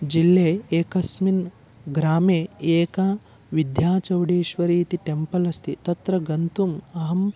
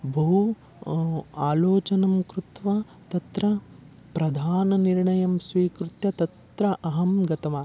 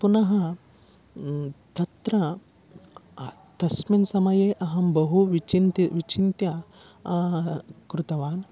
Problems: none marked